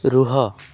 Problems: constant background noise